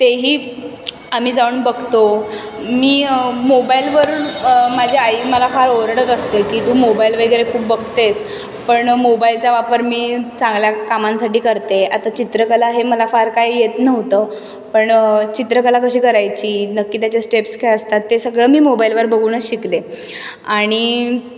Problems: none marked